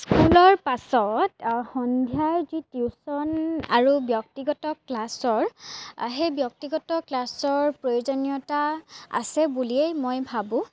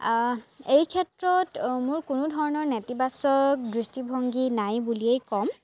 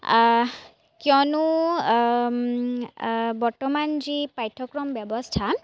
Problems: background sounds at intervals, background conversations at intervals